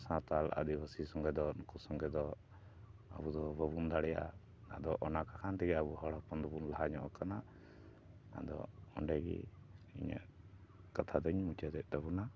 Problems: none marked